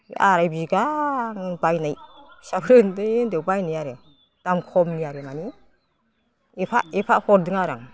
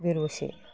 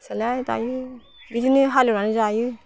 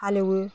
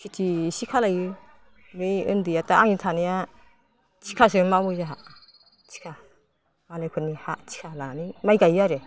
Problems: low volume